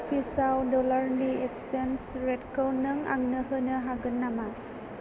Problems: constant background noise